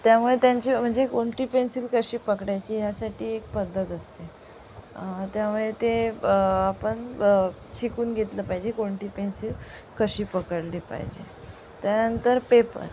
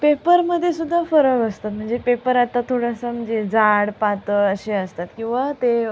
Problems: constant background noise